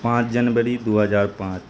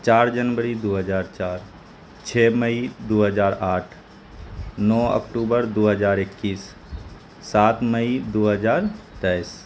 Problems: constant background noise